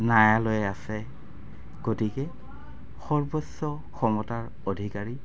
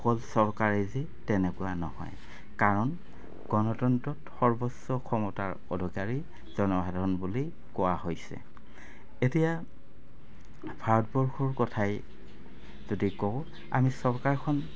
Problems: constant background noise